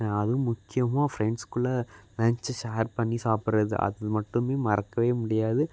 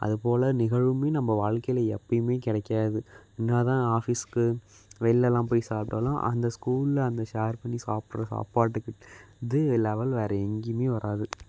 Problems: none marked